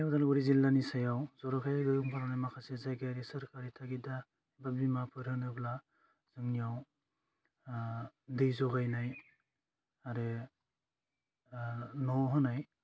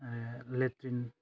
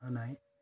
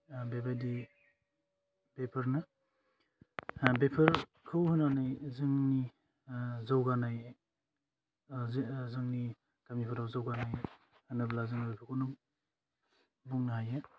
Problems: low volume